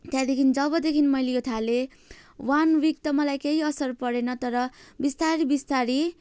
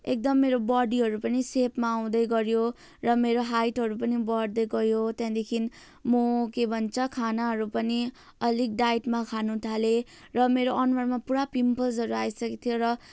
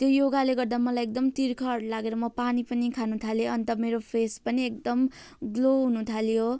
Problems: constant background noise